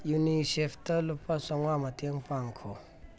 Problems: none marked